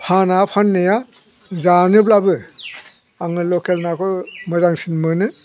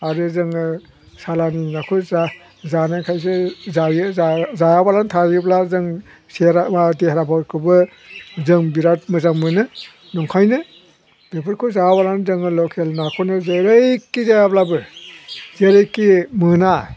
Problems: none marked